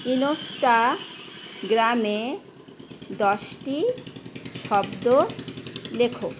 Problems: constant background noise